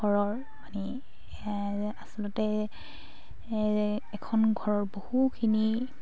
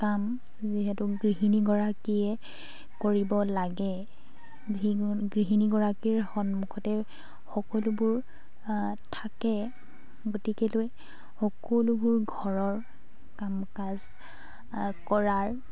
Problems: constant background noise, background conversations at intervals